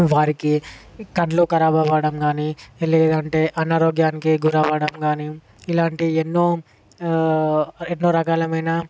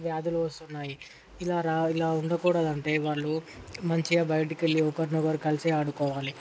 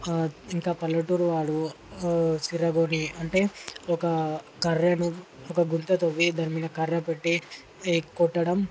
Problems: none marked